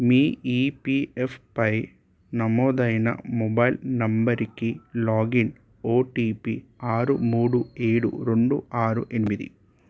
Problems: none marked